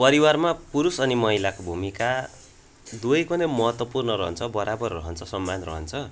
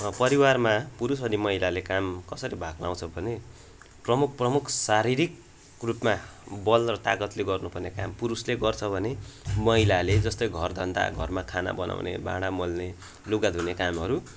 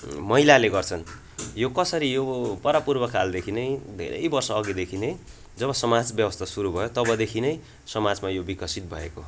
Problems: constant background noise